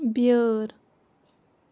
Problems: none marked